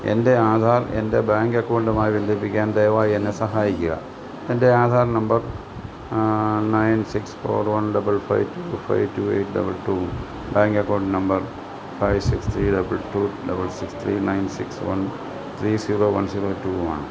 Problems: constant background noise, low volume